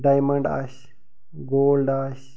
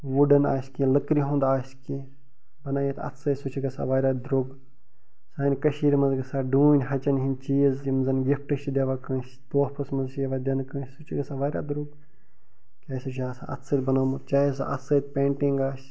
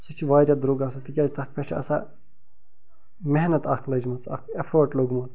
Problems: background sounds at intervals, low volume